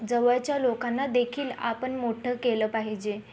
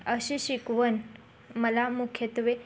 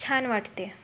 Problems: background sounds at intervals, background conversations at intervals